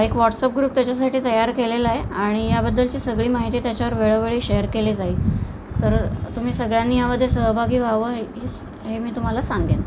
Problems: constant background noise